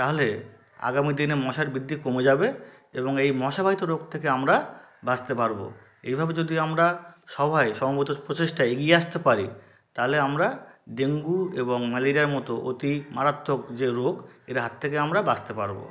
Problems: continuous background conversations